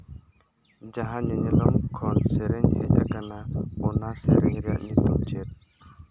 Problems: constant background noise, low volume